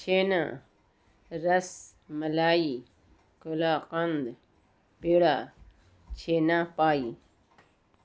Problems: constant background noise